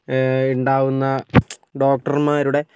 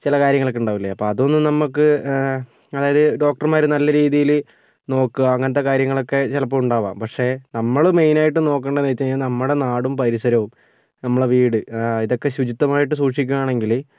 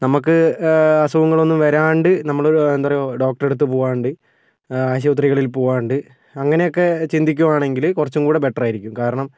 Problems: none marked